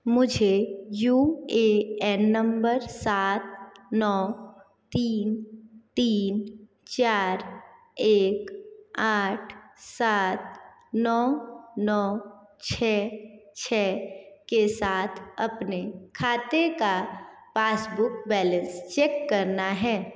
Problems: echo